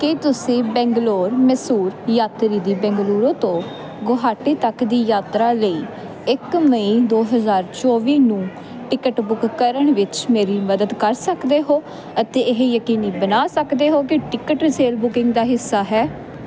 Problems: none marked